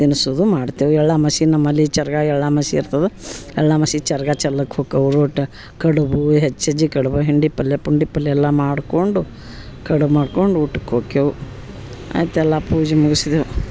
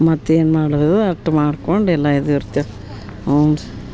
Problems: background sounds at intervals